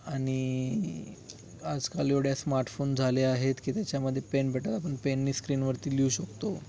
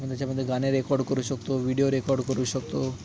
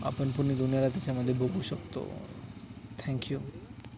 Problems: background sounds at intervals